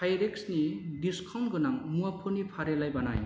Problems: none marked